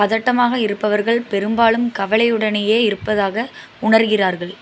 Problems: constant background noise